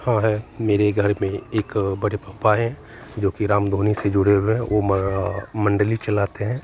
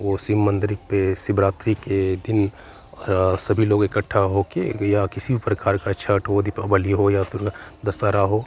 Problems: constant background noise, continuous background conversations